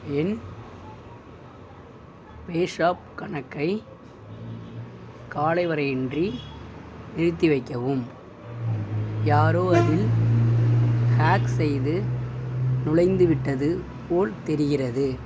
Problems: background sounds at intervals